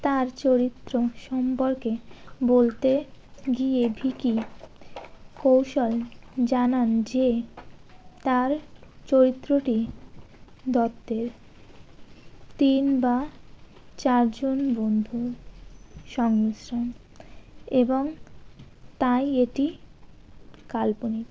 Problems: constant background noise